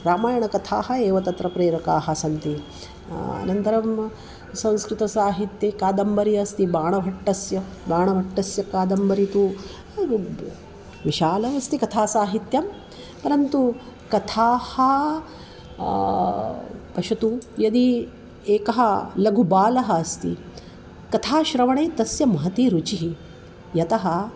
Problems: constant background noise